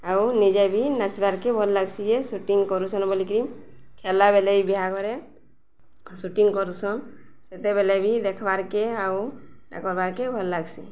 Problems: none marked